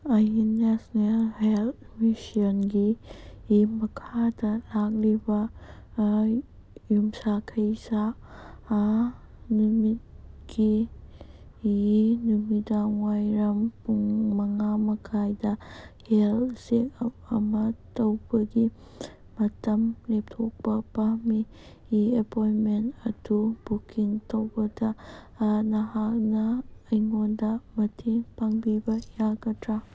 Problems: background sounds at intervals